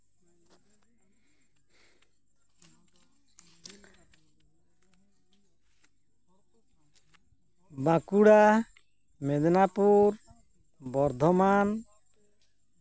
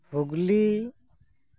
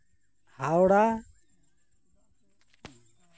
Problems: none marked